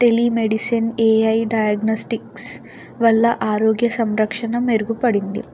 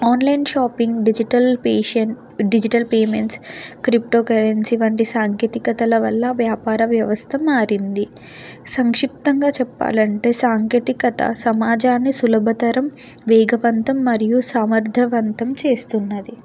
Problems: background sounds at intervals